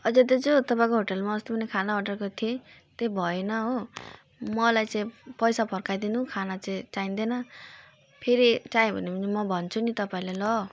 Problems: none marked